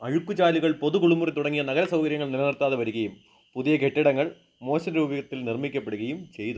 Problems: background sounds at intervals